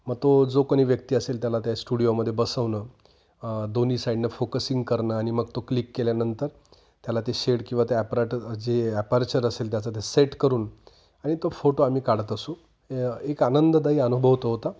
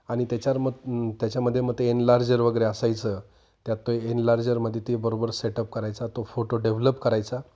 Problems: constant background noise, continuous background conversations